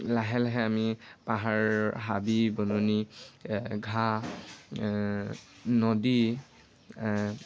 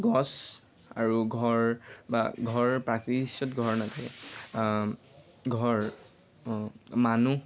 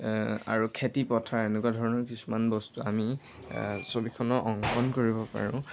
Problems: constant background noise